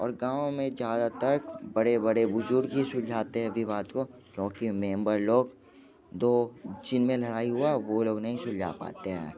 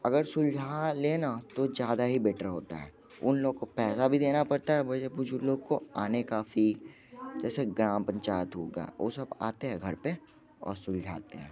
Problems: constant background noise, continuous background conversations